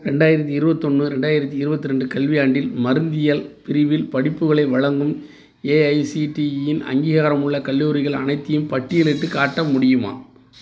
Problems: background sounds at intervals